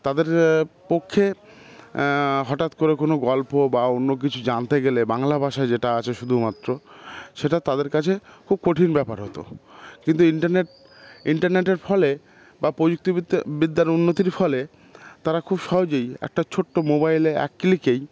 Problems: none marked